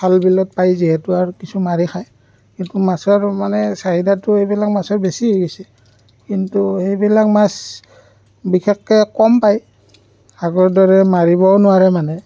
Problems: none marked